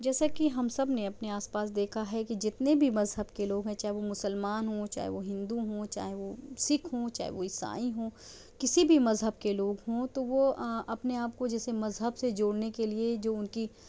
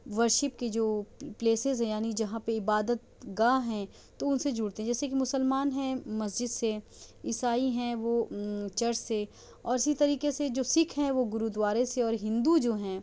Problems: none marked